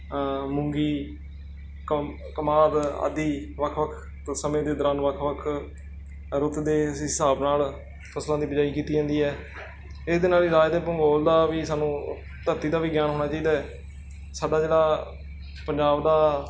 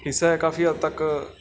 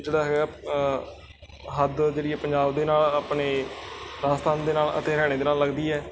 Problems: background sounds at intervals